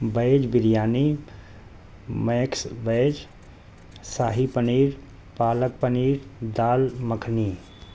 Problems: constant background noise